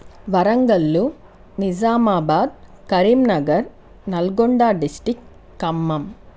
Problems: constant background noise